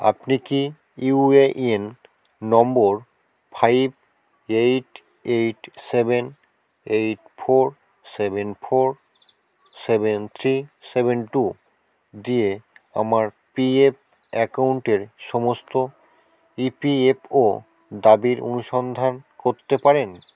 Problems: none marked